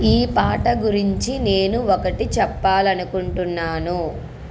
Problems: background sounds at intervals